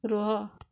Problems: low volume